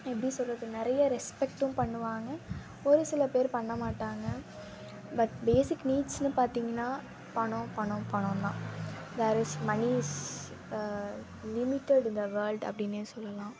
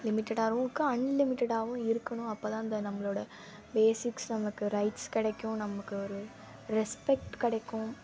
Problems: constant background noise